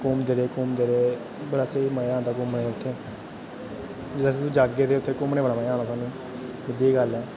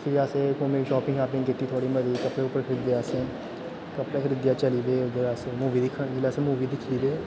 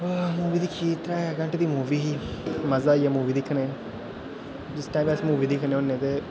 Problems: constant background noise